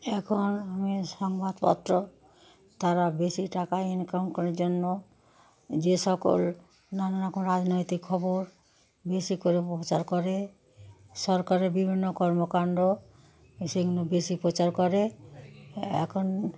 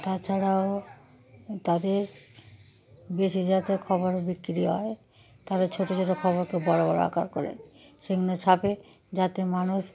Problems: continuous background conversations